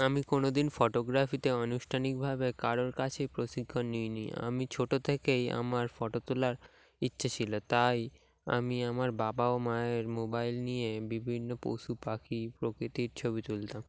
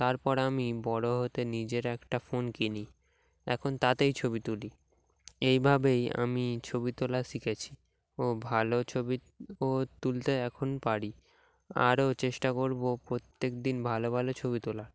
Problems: background sounds at intervals